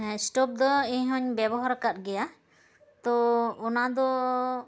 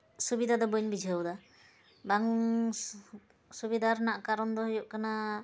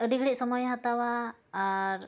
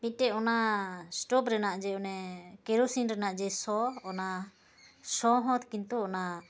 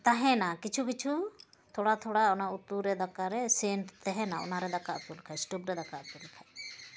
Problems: constant background noise